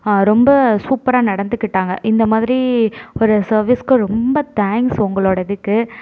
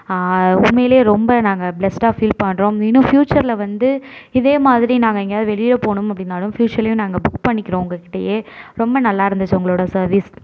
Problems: none marked